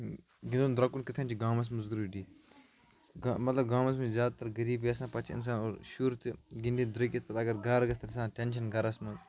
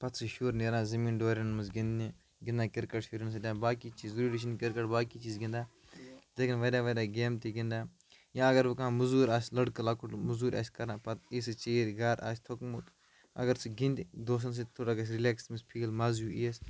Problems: background sounds at intervals, low volume